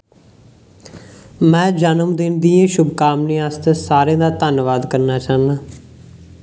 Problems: background sounds at intervals